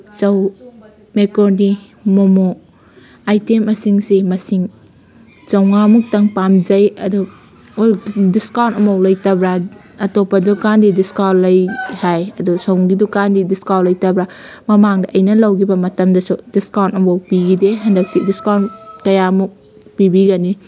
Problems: none marked